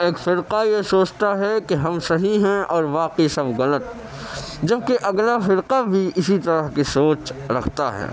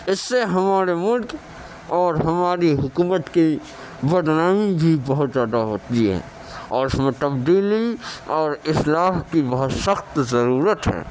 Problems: constant background noise, background conversations at intervals